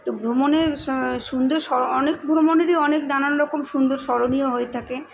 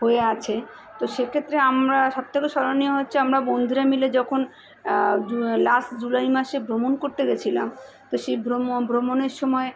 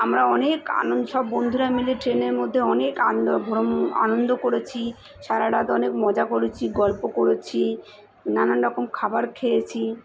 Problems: constant background noise, continuous background conversations